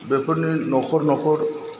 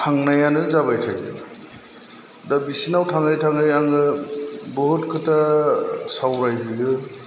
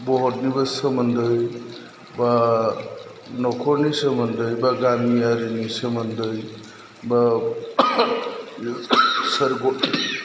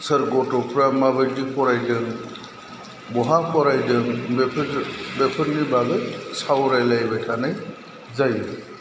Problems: low volume